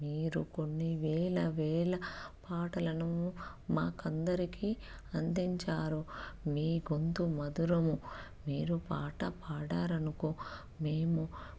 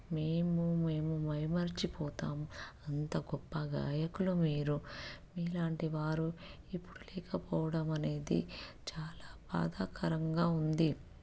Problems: none marked